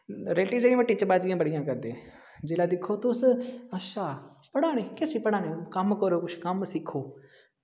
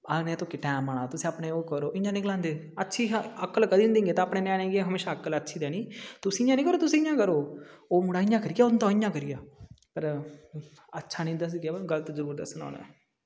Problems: background sounds at intervals, echo